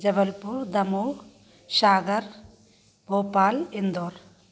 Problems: constant background noise